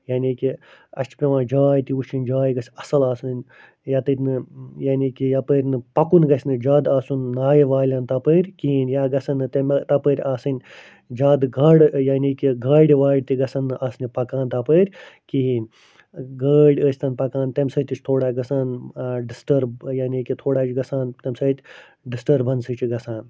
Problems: none marked